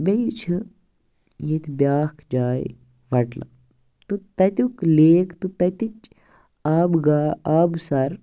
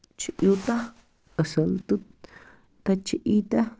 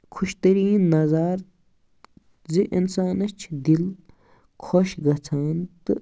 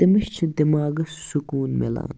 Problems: none marked